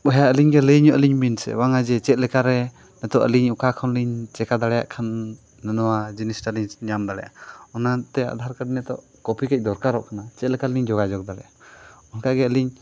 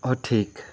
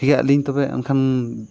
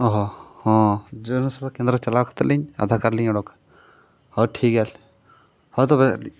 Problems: background sounds at intervals